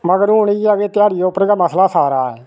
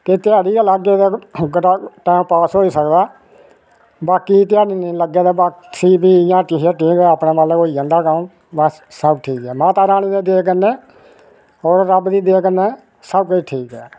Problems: none marked